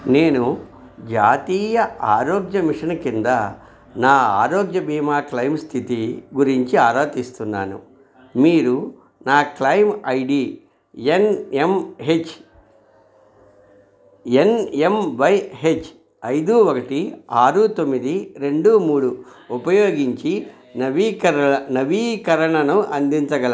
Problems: background conversations at intervals